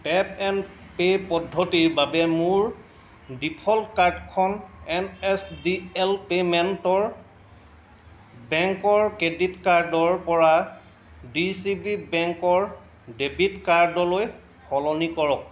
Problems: constant background noise, background conversations at intervals